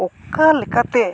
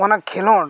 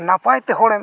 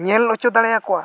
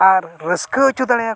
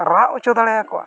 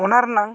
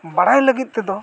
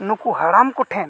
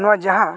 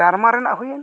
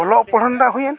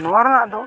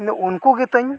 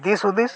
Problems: background sounds at intervals, continuous background conversations